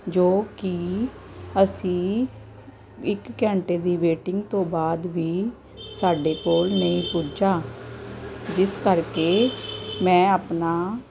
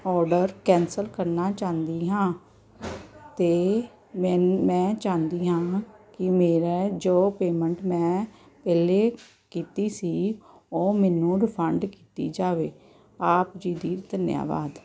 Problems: background sounds at intervals